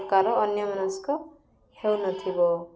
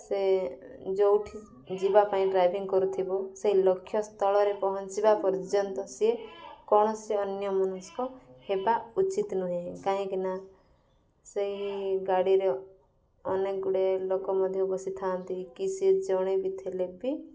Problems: background sounds at intervals, background conversations at intervals